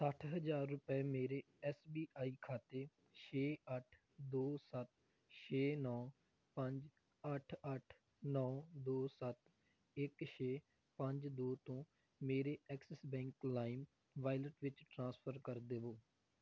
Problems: background sounds at intervals